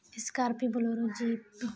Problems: constant background noise